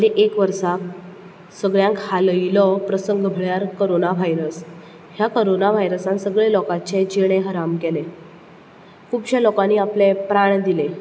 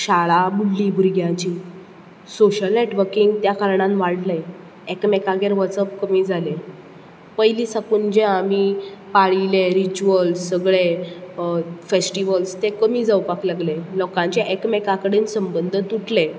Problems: none marked